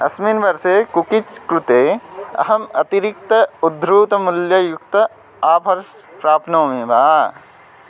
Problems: none marked